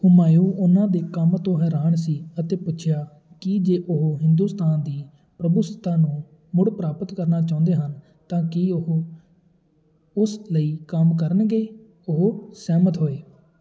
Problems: continuous background conversations